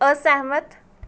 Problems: background sounds at intervals